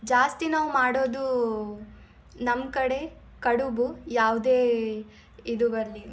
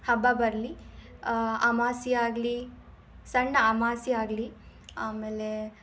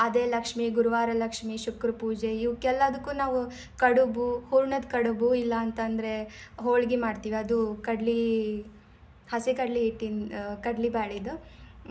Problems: none marked